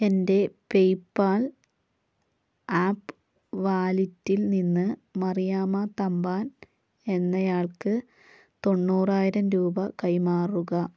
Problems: none marked